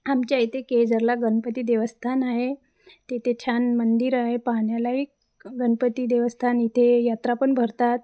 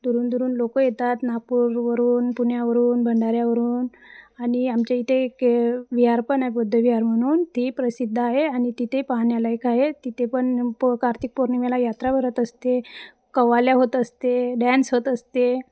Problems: background sounds at intervals, background conversations at intervals